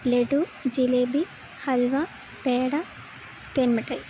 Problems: constant background noise